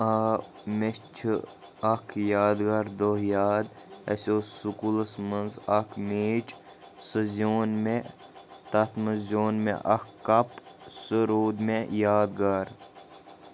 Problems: constant background noise